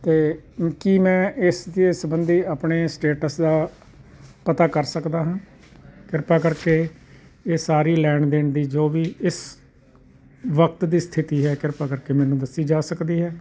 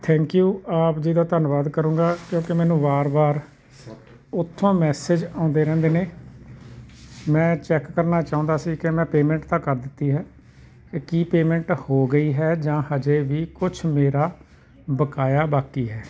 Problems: constant background noise